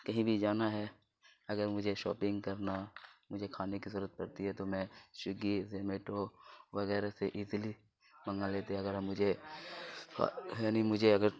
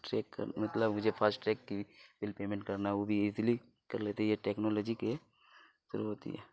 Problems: constant background noise